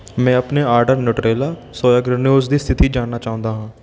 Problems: background sounds at intervals